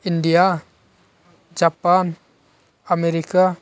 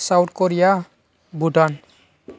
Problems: none marked